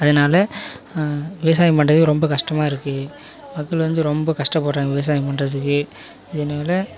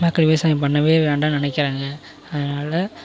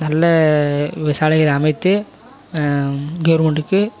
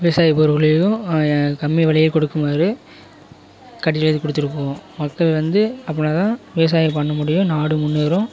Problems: continuous background conversations